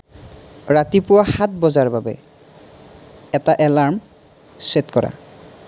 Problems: none marked